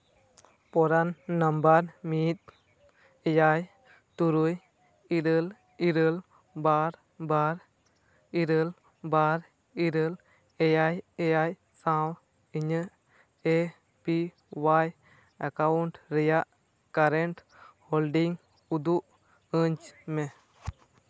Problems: constant background noise, background conversations at intervals